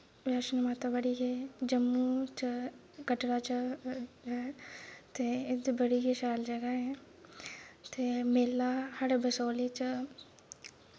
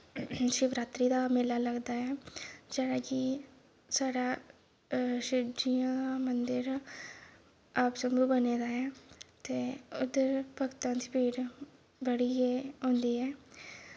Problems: background sounds at intervals, low volume